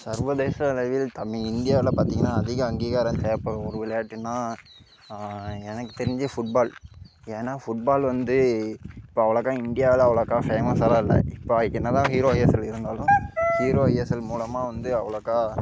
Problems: background sounds at intervals